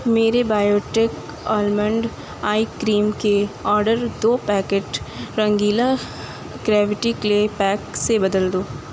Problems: constant background noise